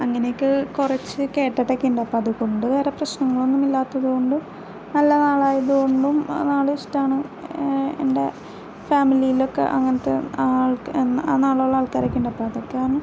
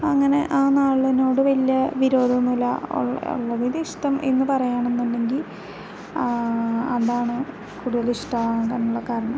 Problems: background sounds at intervals